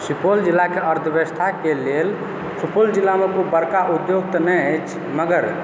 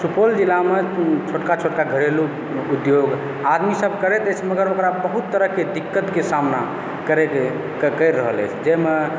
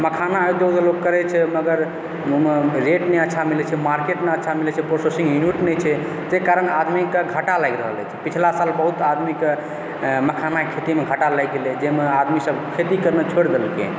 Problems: constant background noise